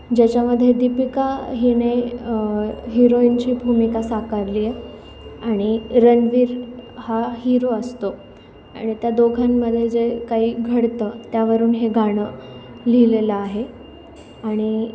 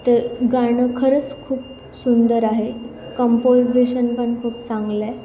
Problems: none marked